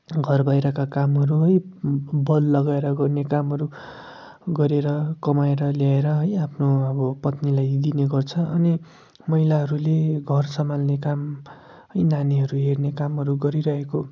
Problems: background sounds at intervals